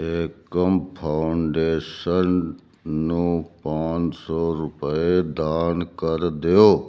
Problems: none marked